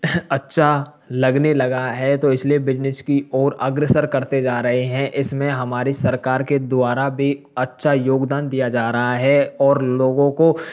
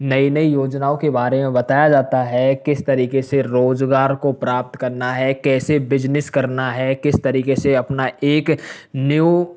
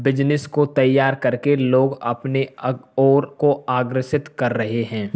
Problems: background sounds at intervals